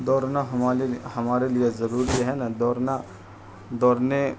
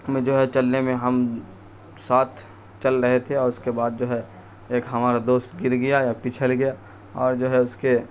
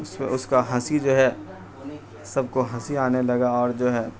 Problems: constant background noise